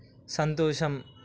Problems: constant background noise